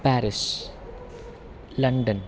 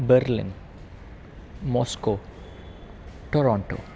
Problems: constant background noise